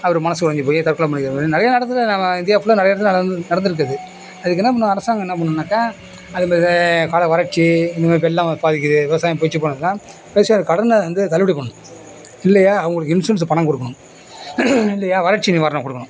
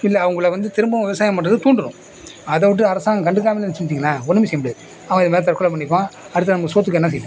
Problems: none marked